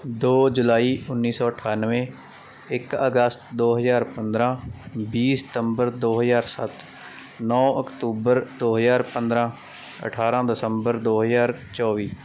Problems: constant background noise